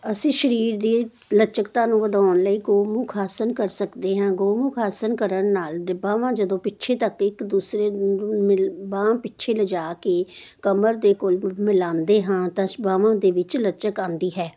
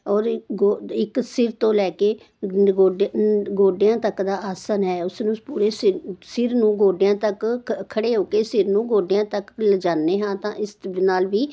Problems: none marked